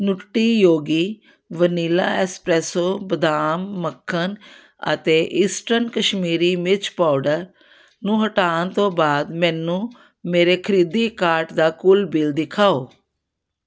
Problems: none marked